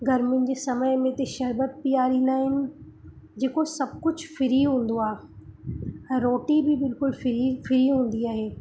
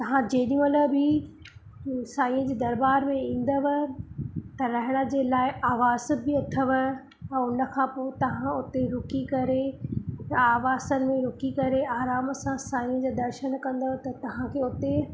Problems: constant background noise